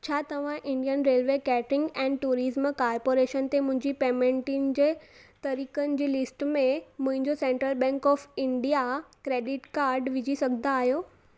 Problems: none marked